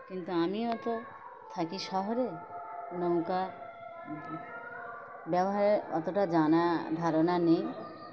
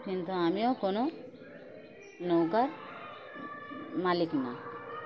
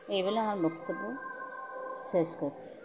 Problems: constant background noise